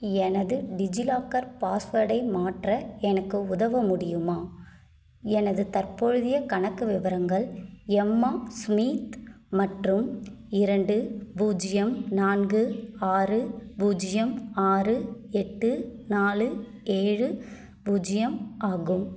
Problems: none marked